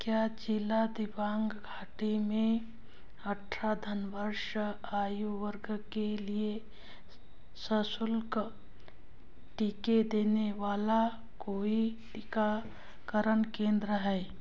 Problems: background sounds at intervals